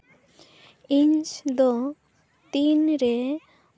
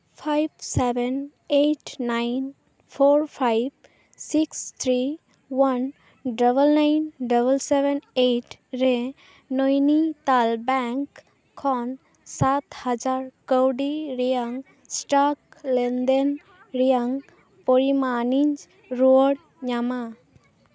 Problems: background sounds at intervals, background conversations at intervals